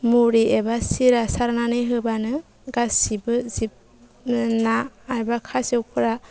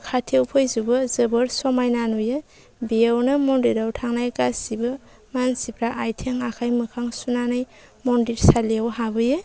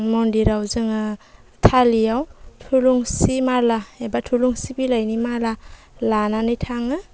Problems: low volume